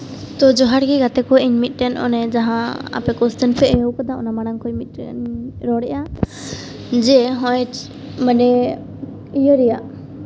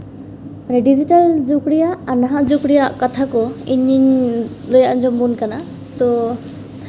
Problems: background sounds at intervals, low volume